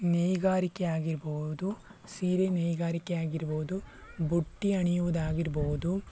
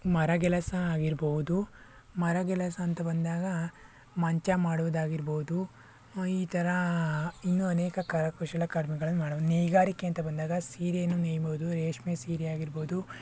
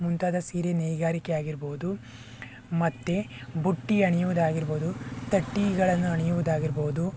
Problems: none marked